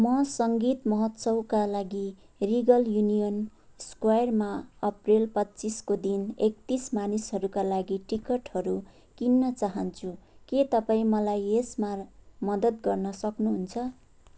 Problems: none marked